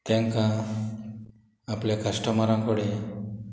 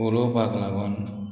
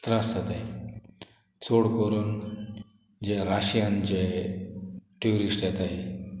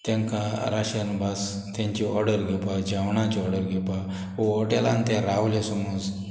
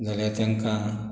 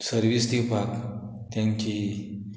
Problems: none marked